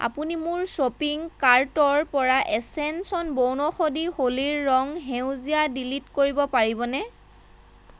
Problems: none marked